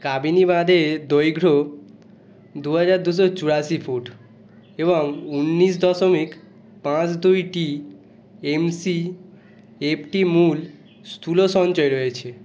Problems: none marked